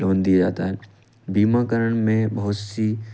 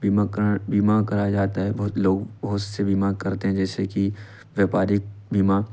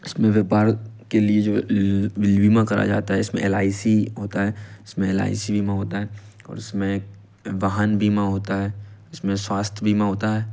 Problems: constant background noise